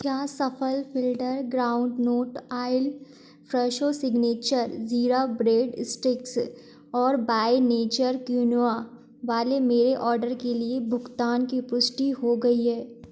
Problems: background sounds at intervals